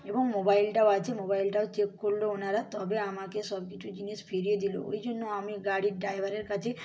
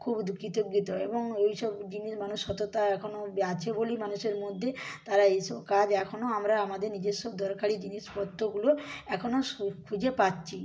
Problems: none marked